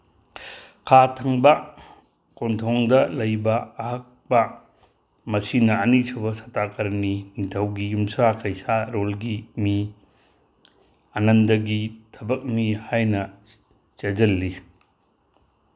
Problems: none marked